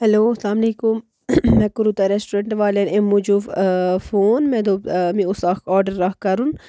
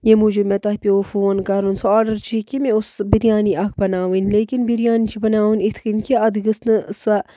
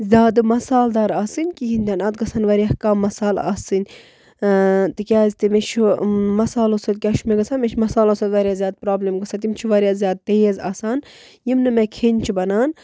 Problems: none marked